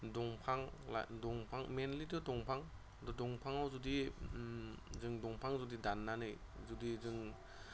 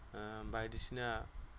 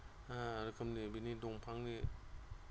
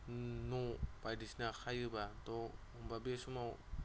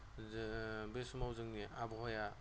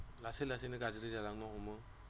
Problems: constant background noise